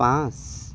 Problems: constant background noise